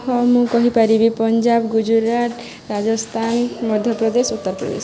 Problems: constant background noise